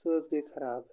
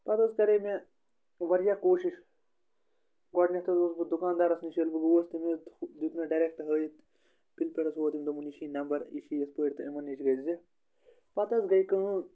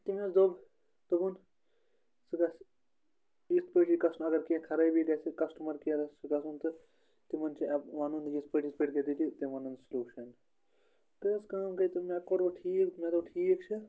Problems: background conversations at intervals